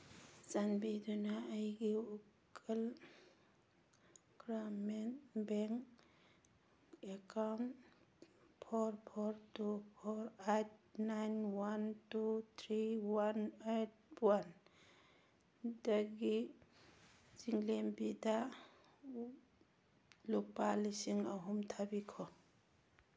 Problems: background sounds at intervals